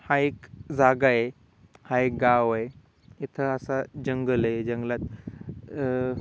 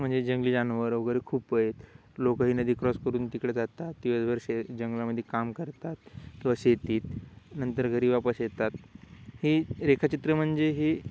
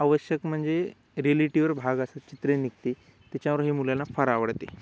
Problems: none marked